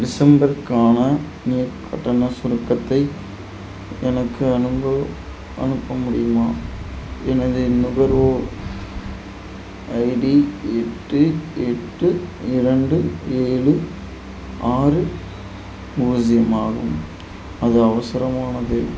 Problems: constant background noise